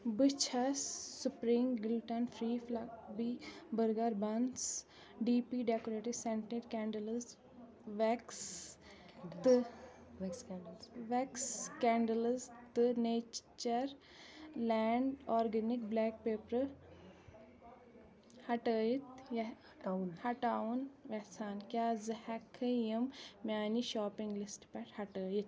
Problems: background conversations at intervals